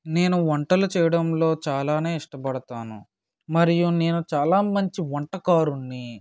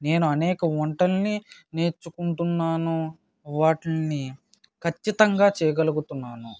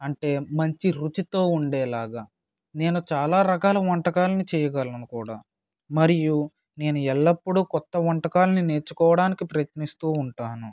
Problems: none marked